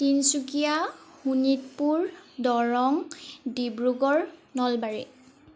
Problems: none marked